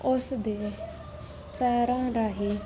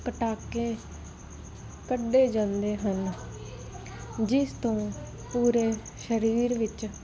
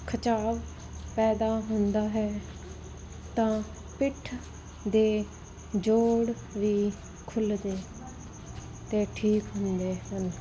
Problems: constant background noise